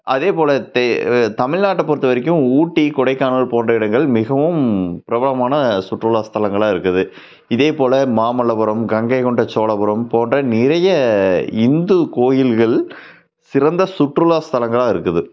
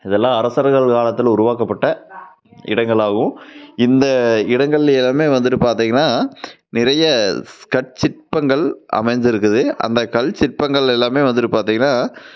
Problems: none marked